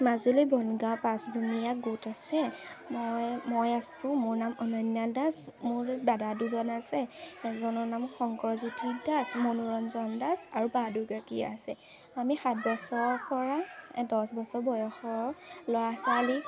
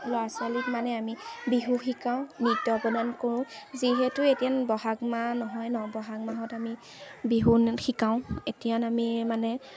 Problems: constant background noise, background conversations at intervals